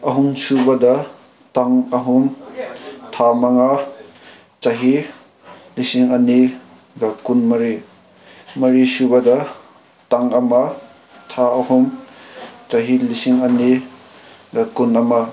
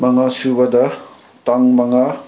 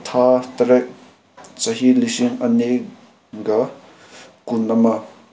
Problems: constant background noise